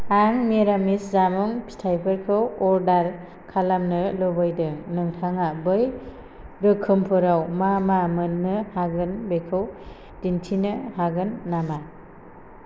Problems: constant background noise